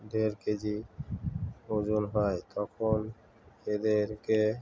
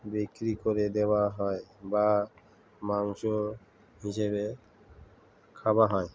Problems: constant background noise, continuous background conversations